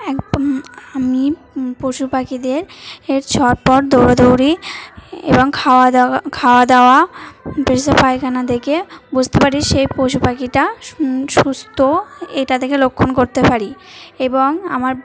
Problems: constant background noise, continuous background conversations